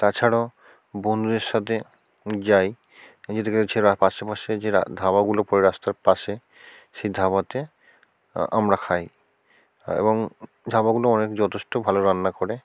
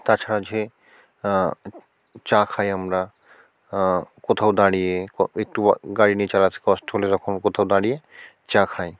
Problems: constant background noise